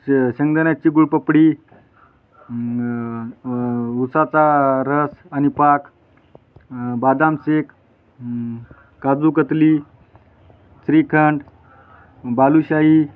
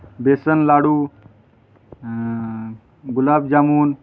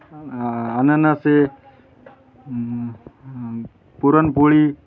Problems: constant background noise, continuous background conversations